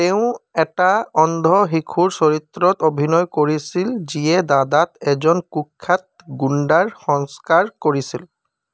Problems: none marked